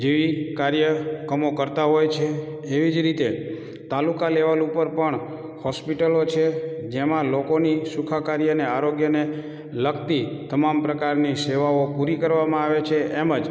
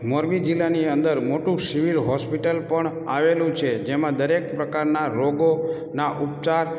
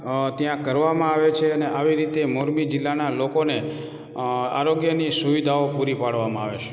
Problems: background sounds at intervals